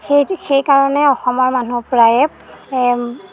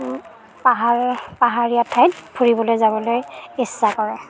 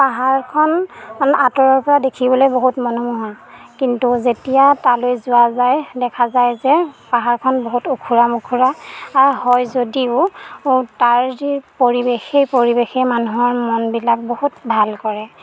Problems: background sounds at intervals